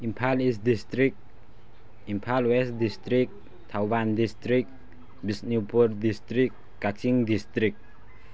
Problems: none marked